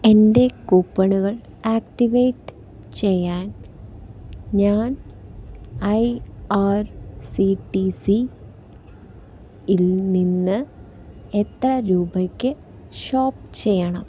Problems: none marked